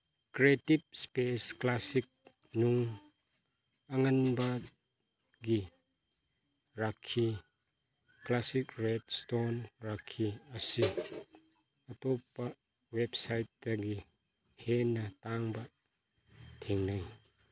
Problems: none marked